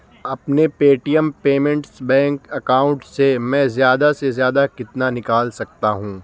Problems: constant background noise